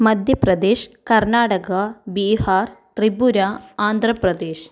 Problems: none marked